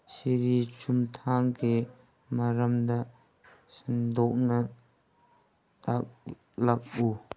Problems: background sounds at intervals